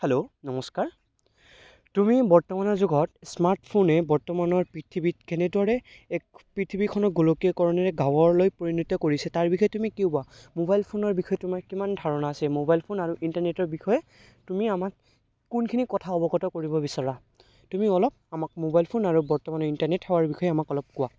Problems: background sounds at intervals, background conversations at intervals